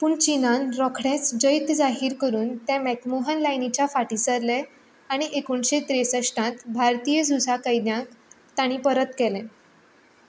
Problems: low volume